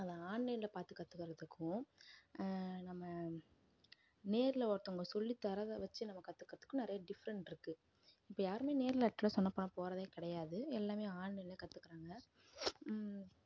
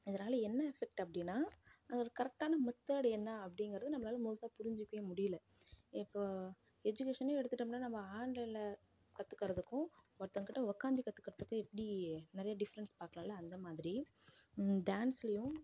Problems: none marked